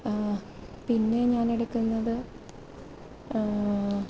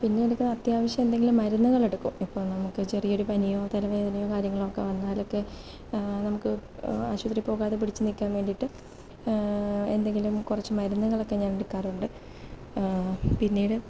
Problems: low volume